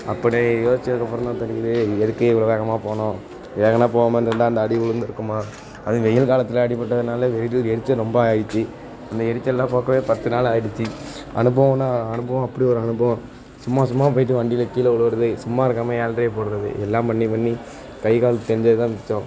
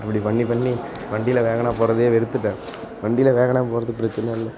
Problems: constant background noise, low volume